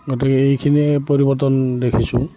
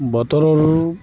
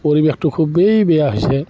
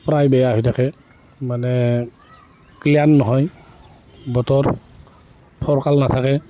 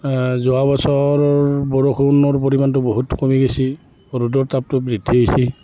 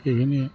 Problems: background sounds at intervals, continuous background conversations